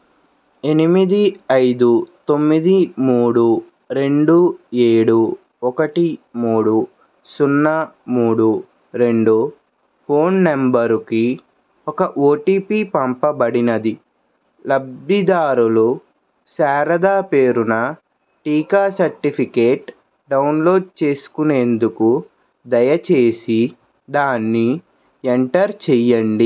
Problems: none marked